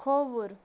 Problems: constant background noise